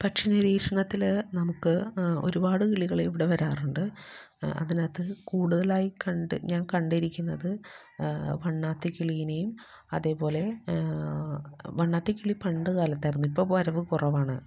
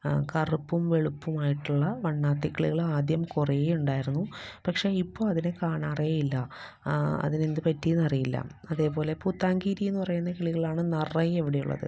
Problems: low volume